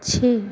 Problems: constant background noise, background conversations at intervals